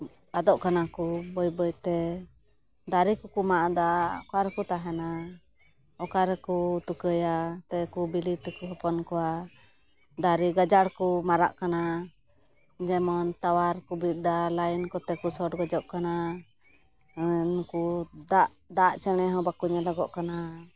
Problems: background sounds at intervals